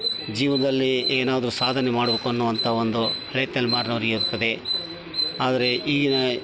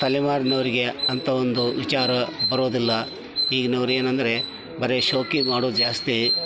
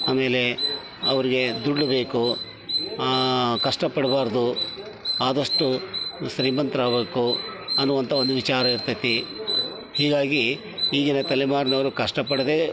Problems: background sounds at intervals